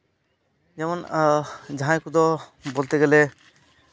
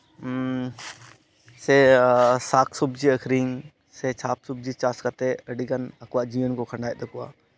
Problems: background sounds at intervals